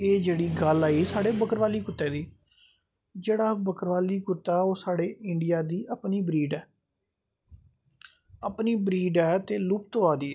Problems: none marked